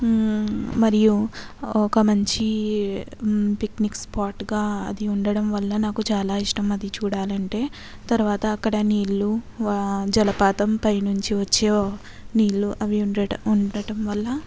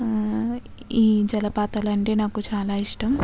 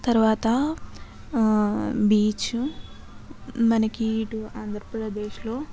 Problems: background sounds at intervals, continuous background conversations